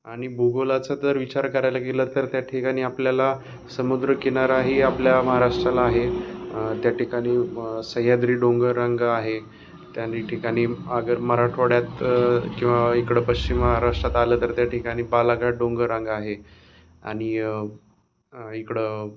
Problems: none marked